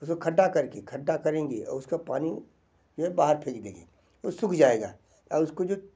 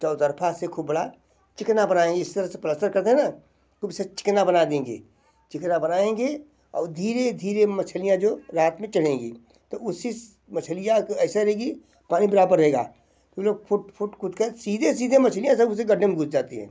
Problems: none marked